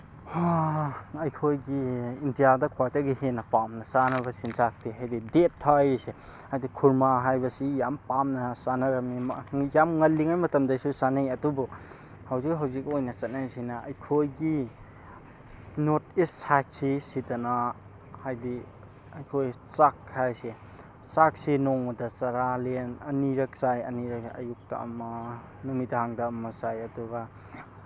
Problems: constant background noise